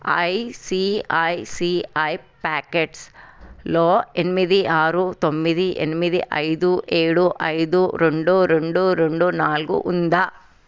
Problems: none marked